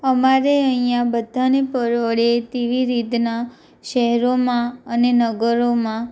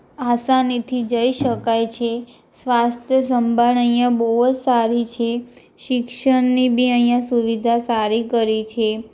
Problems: none marked